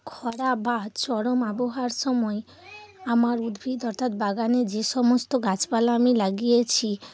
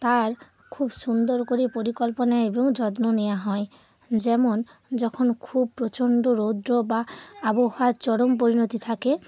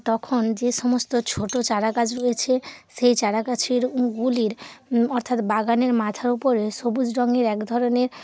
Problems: constant background noise